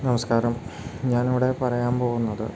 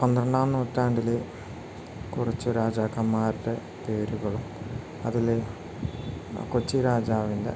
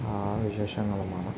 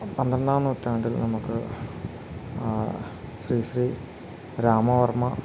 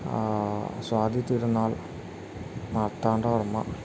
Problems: constant background noise